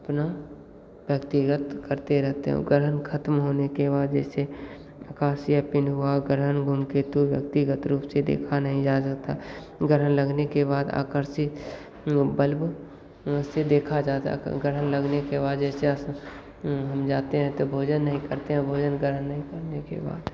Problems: constant background noise, echo